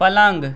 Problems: continuous background conversations